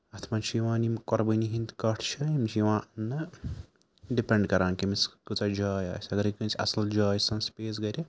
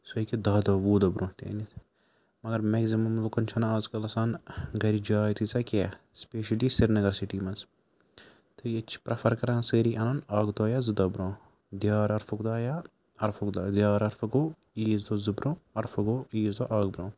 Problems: constant background noise